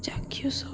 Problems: none marked